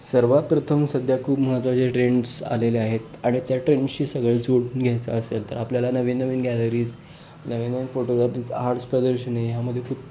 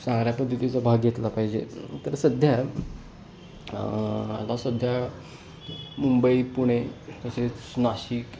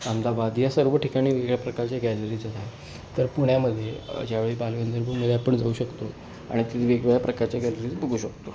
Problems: none marked